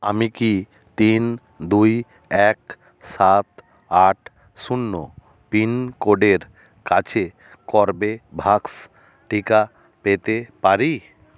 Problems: none marked